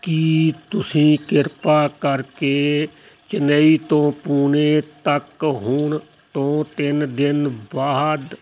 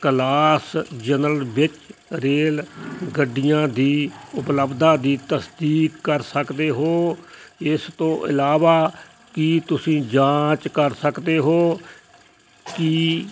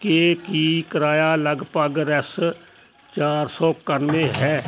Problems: constant background noise